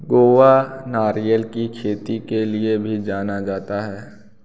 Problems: constant background noise